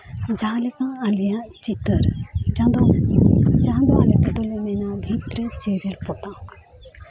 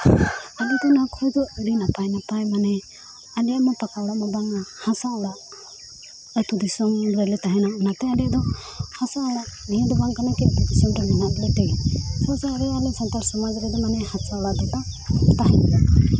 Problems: constant background noise, continuous background conversations